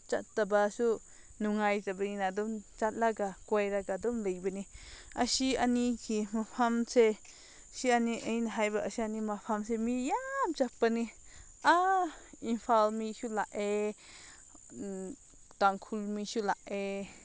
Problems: none marked